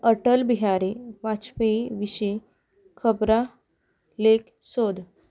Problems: none marked